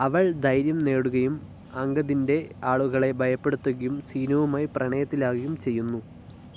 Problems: low volume